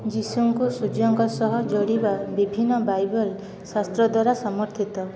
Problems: constant background noise, continuous background conversations